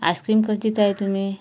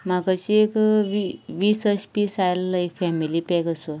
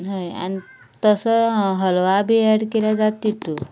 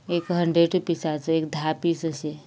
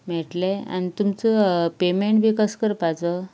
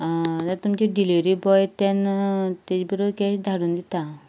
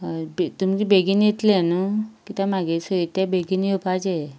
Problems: none marked